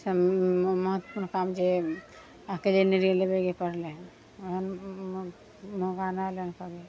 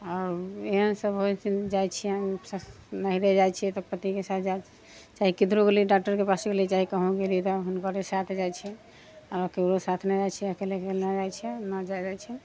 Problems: background sounds at intervals